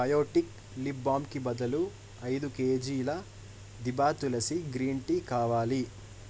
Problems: constant background noise